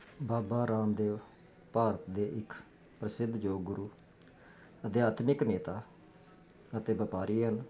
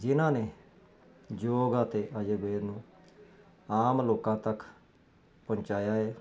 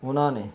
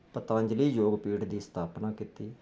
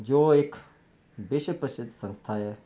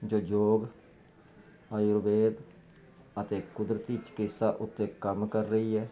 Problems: none marked